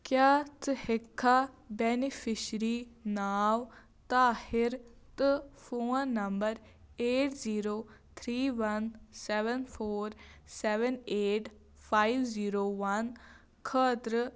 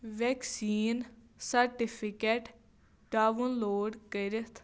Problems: constant background noise